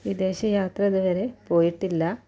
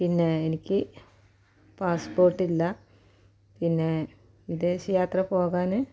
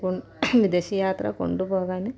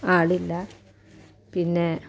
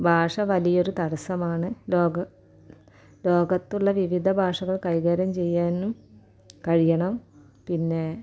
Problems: low volume